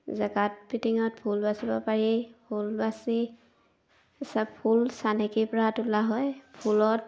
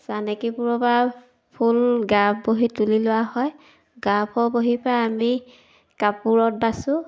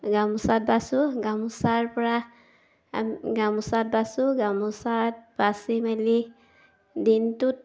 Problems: background sounds at intervals